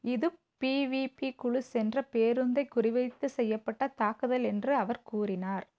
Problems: low volume